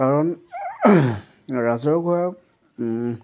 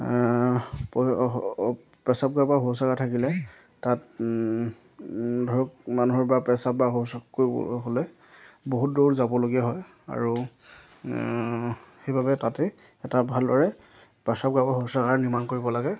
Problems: none marked